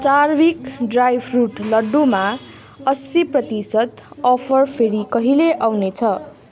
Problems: continuous background conversations